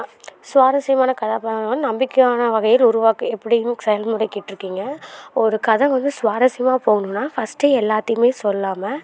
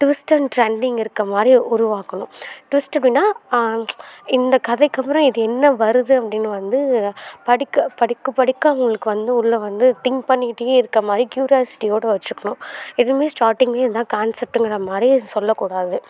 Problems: none marked